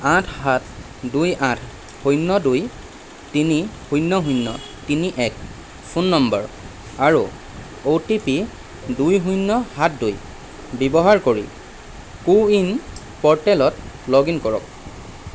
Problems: constant background noise